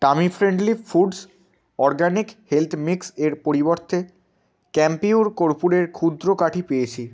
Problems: constant background noise